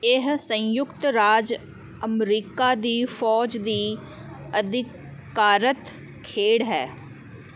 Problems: none marked